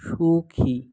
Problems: none marked